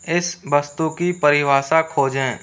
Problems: constant background noise